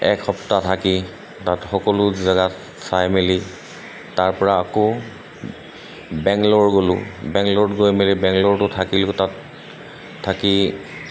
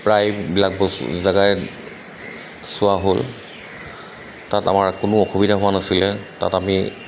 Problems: constant background noise